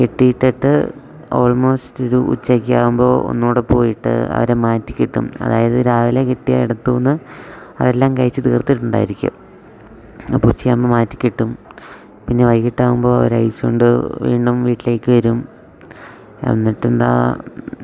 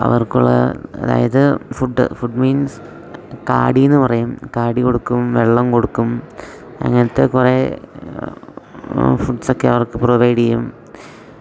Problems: none marked